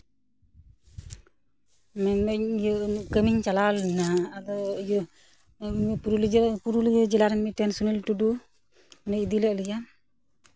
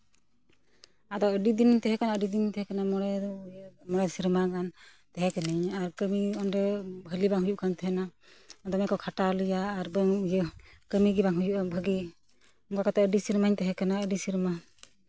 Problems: none marked